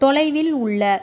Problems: none marked